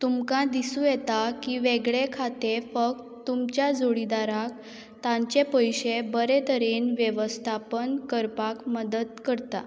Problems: none marked